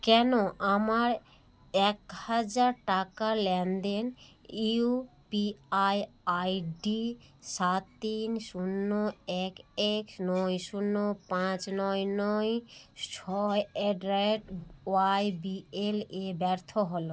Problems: constant background noise